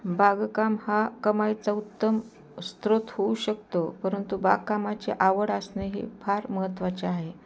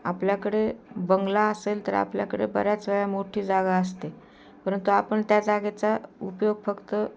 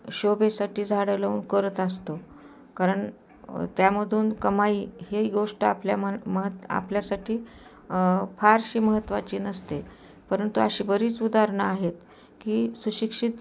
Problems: constant background noise, background conversations at intervals